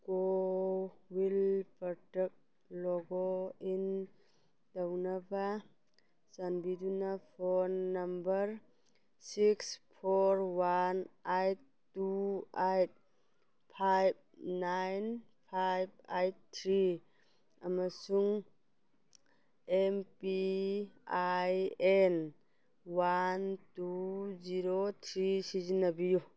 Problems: background sounds at intervals